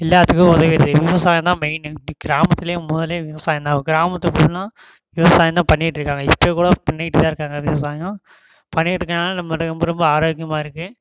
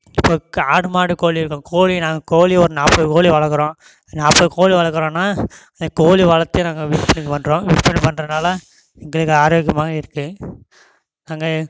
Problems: background sounds at intervals